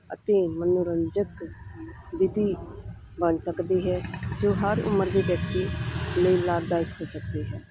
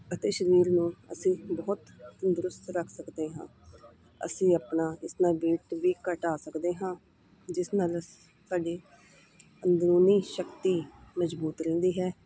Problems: none marked